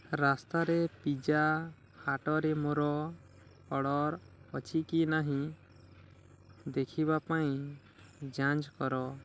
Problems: low volume